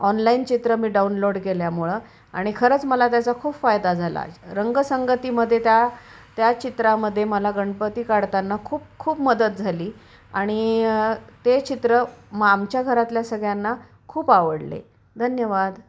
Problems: none marked